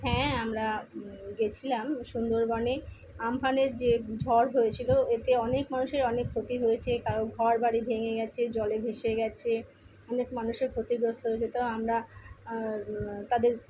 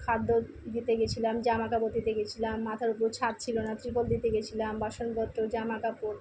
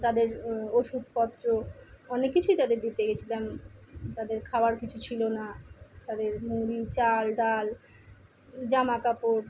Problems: constant background noise